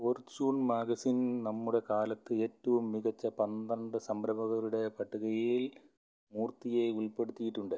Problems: low volume